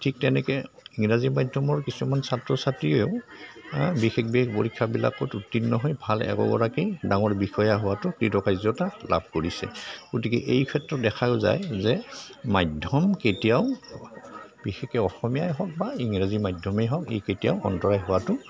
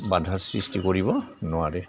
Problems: constant background noise, background conversations at intervals